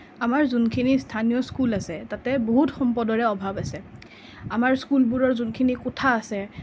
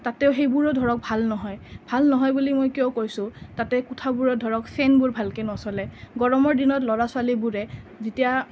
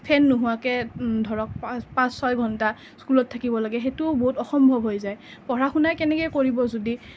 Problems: background sounds at intervals